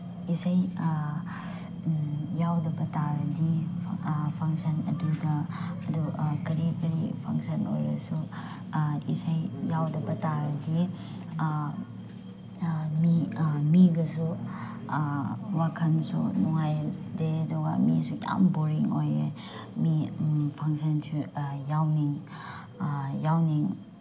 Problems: none marked